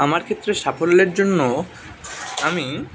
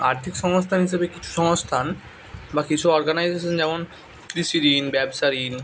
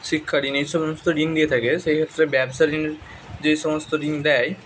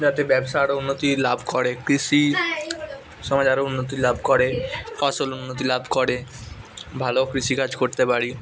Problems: constant background noise, continuous background conversations